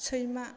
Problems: low volume